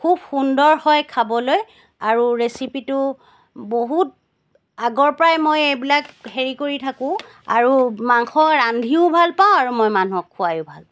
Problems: none marked